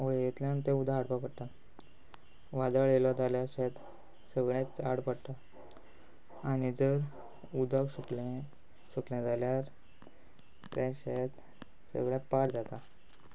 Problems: background sounds at intervals